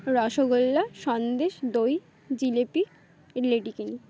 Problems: none marked